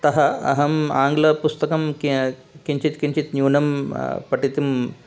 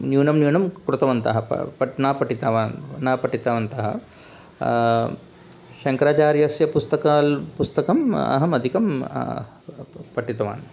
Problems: constant background noise